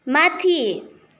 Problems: none marked